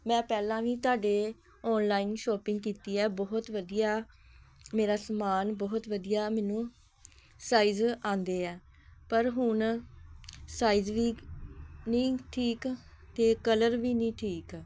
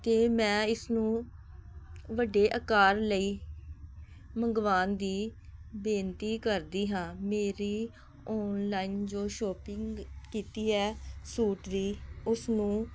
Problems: background sounds at intervals